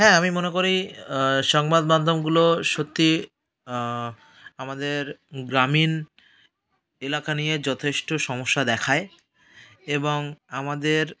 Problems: none marked